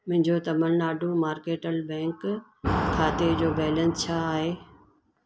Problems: constant background noise